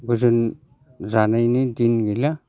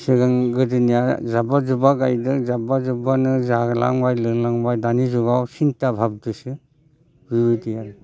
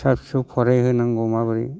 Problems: constant background noise